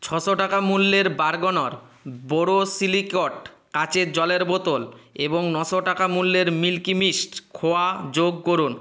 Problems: constant background noise